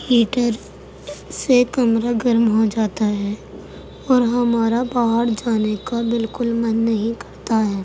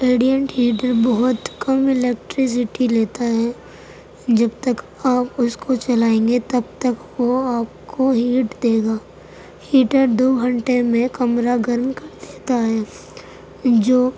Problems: constant background noise